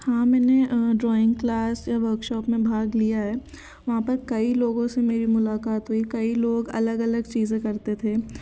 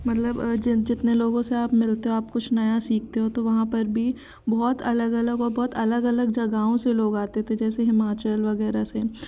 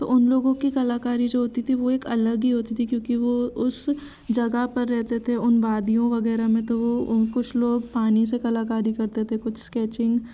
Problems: constant background noise, background conversations at intervals